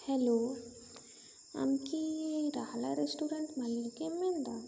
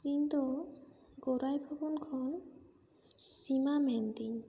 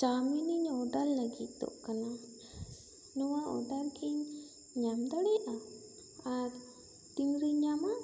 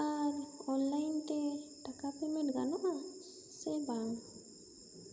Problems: echo, low volume